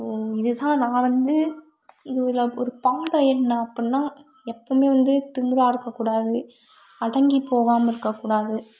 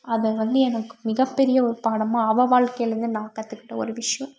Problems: none marked